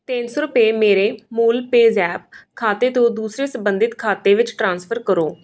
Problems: background sounds at intervals